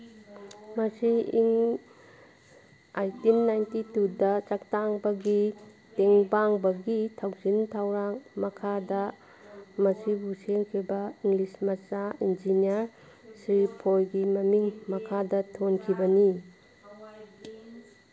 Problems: background sounds at intervals, background conversations at intervals